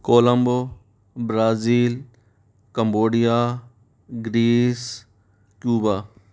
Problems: background sounds at intervals